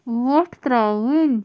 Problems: constant background noise